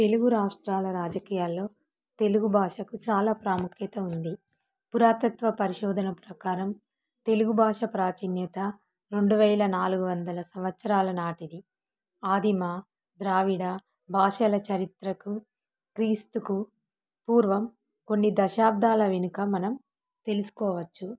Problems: none marked